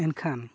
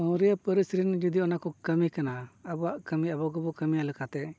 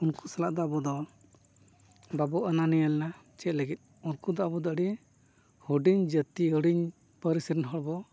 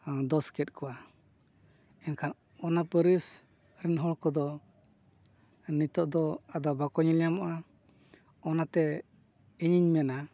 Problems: none marked